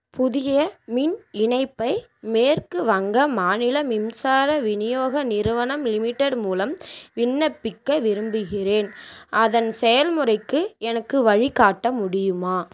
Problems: constant background noise